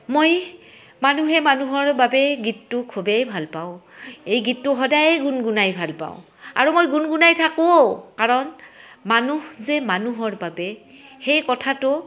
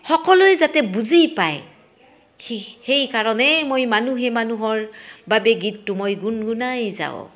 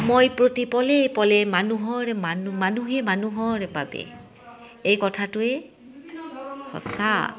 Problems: background sounds at intervals, background conversations at intervals